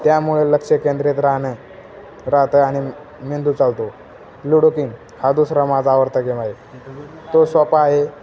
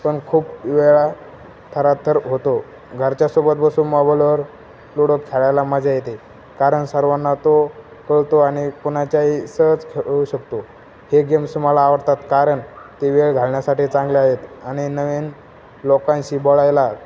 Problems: constant background noise, background conversations at intervals